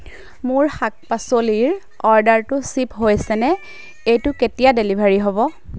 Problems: none marked